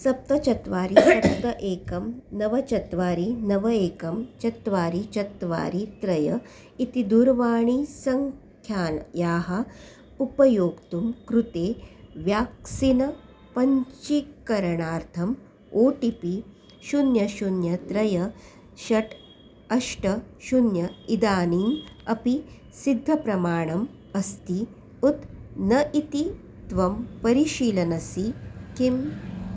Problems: background sounds at intervals